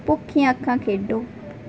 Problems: background sounds at intervals